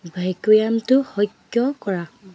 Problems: background sounds at intervals